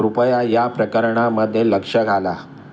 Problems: background sounds at intervals